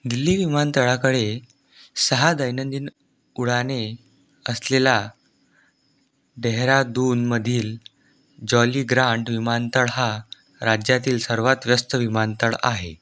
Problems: none marked